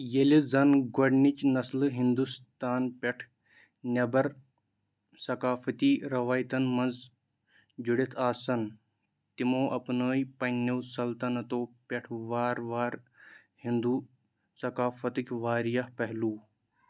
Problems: background sounds at intervals